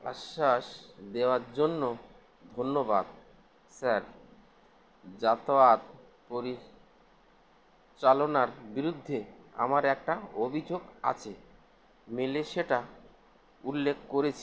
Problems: constant background noise